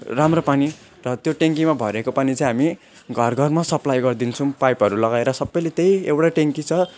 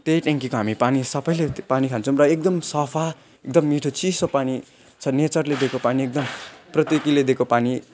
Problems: none marked